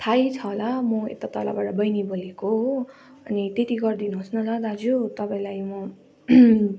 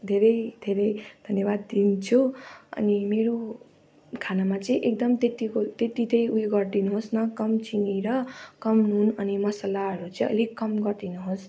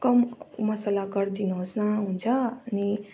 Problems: constant background noise